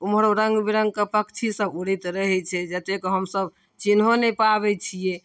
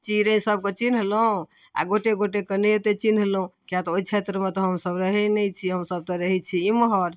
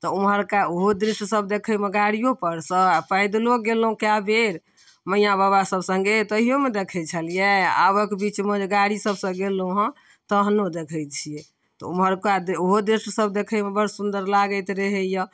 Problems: none marked